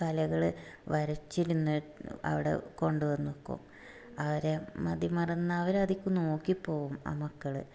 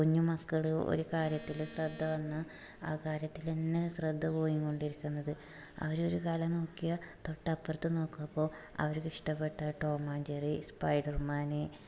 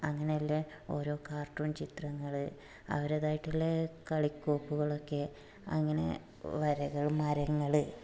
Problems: background sounds at intervals, low volume